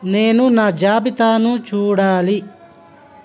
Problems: constant background noise